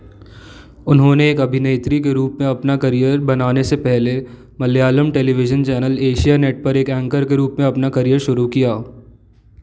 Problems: background sounds at intervals